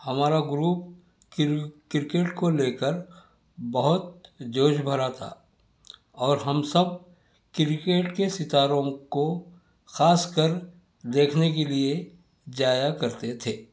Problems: none marked